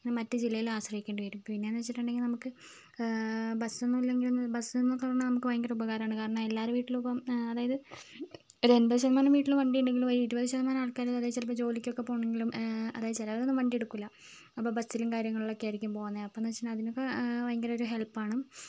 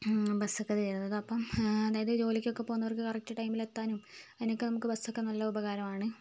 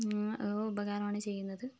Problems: low volume